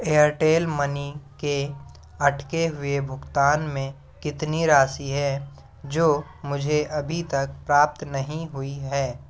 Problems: constant background noise, background conversations at intervals